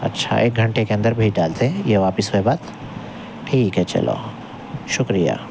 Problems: constant background noise